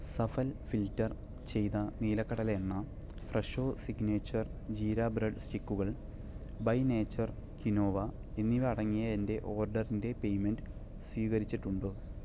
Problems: low volume